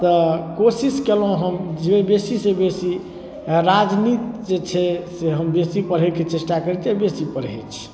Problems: none marked